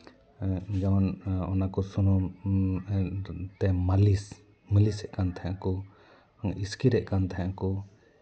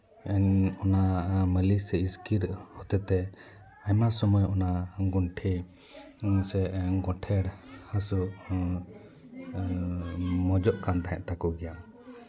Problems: continuous background conversations